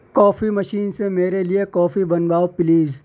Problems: none marked